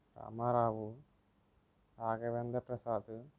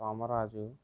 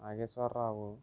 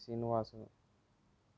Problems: low volume